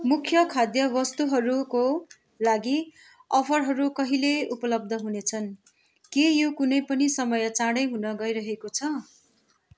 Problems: background sounds at intervals